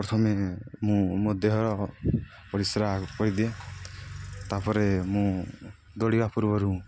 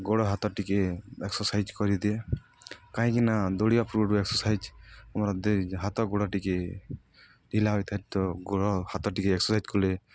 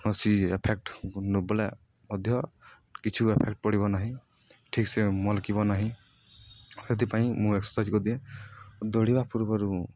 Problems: none marked